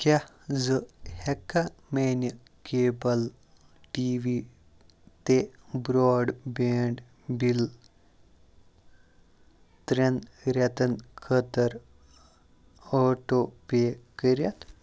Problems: constant background noise, background conversations at intervals